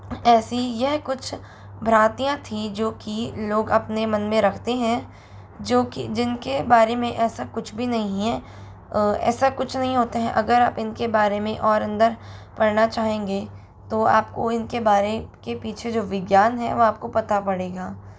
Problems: constant background noise